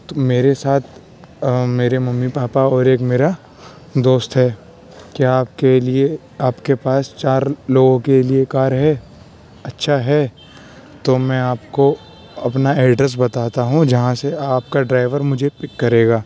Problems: constant background noise